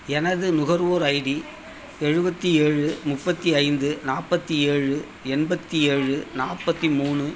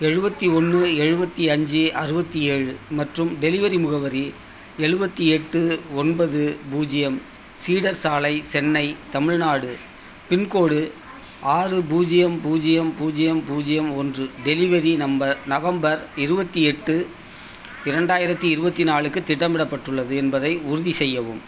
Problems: constant background noise, background conversations at intervals